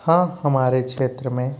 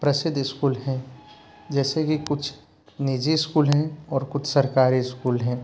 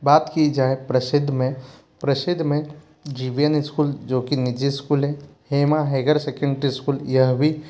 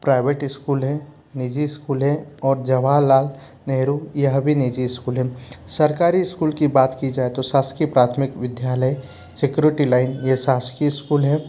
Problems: constant background noise, low volume